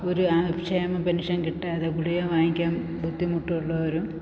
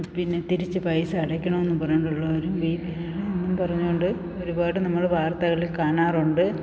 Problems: constant background noise